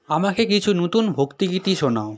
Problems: constant background noise